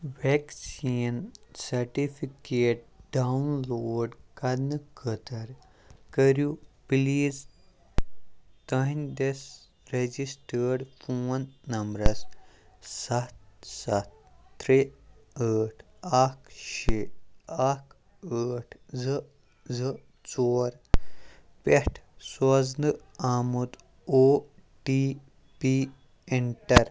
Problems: constant background noise